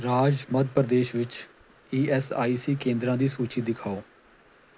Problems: background sounds at intervals